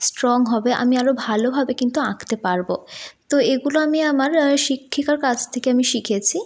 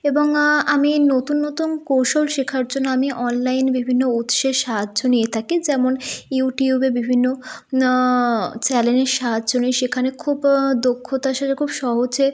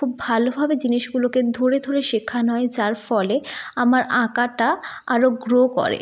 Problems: none marked